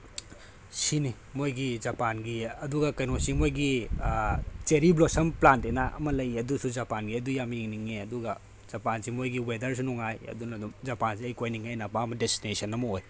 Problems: none marked